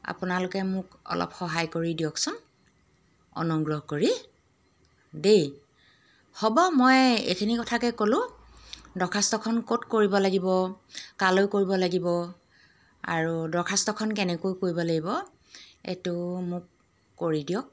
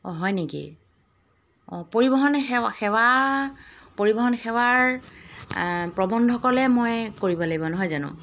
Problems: background sounds at intervals